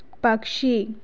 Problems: none marked